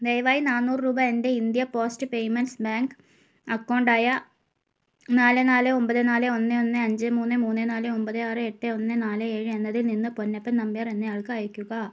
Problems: none marked